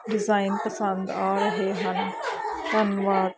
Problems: constant background noise, continuous background conversations